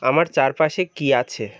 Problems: constant background noise, continuous background conversations